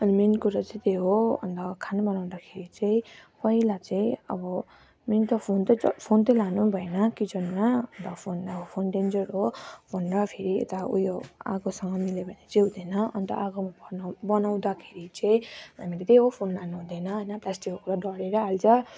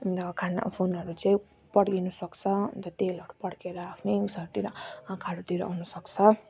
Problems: constant background noise